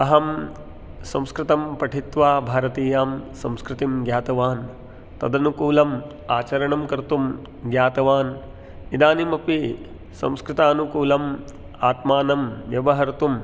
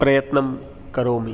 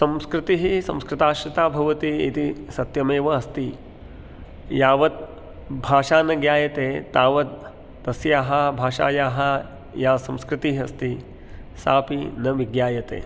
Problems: none marked